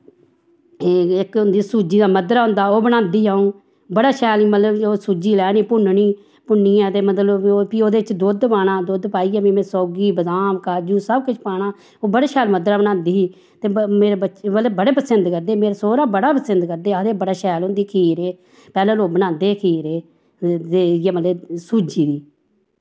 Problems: none marked